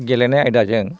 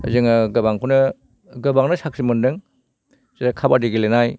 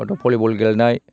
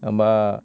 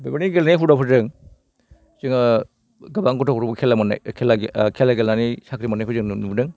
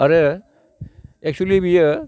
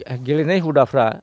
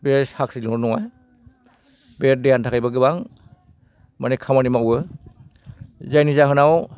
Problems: none marked